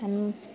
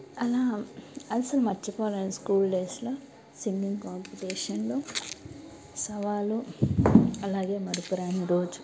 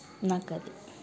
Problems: constant background noise